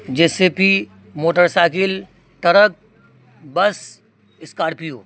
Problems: constant background noise